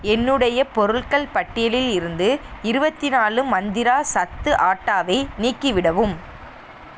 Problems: constant background noise